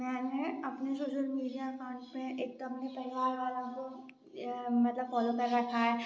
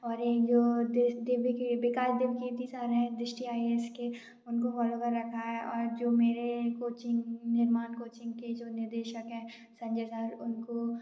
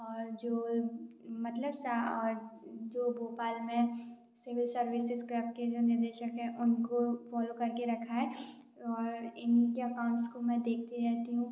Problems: background sounds at intervals, background conversations at intervals